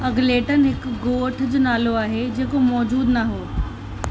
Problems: constant background noise